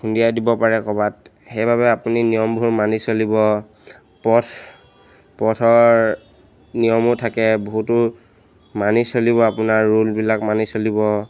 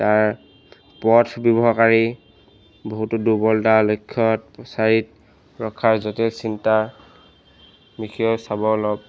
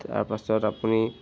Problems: none marked